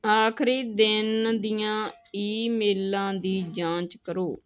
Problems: none marked